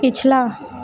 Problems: none marked